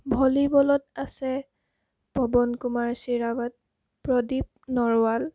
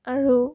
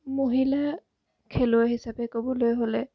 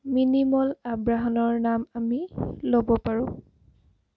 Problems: none marked